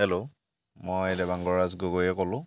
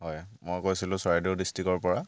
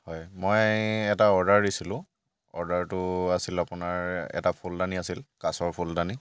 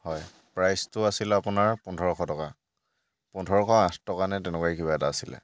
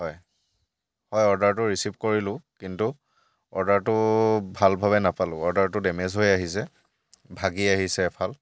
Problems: none marked